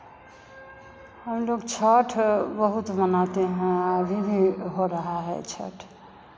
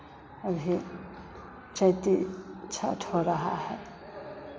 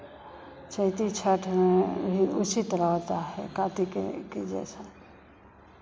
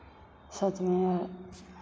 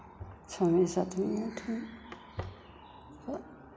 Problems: constant background noise, echo